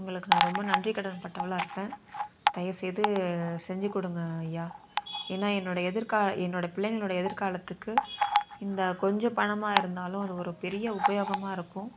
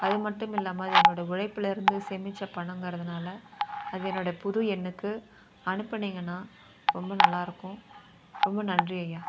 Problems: constant background noise, continuous background conversations